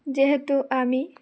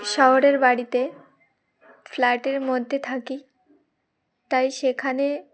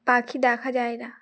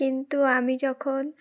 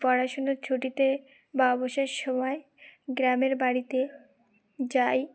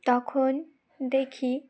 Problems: none marked